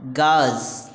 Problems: constant background noise